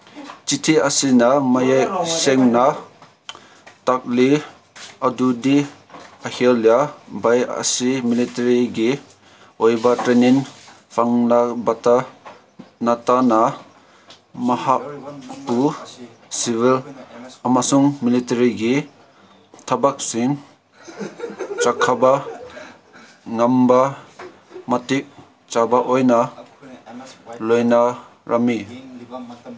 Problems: constant background noise, background conversations at intervals